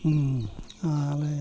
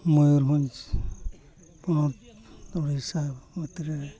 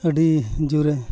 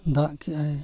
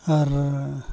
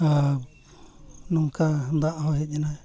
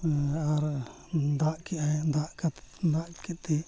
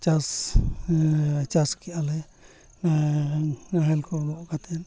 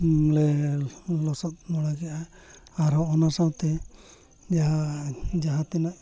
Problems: background sounds at intervals